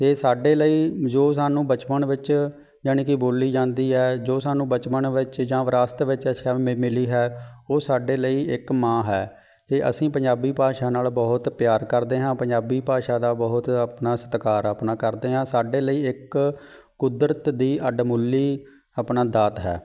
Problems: background sounds at intervals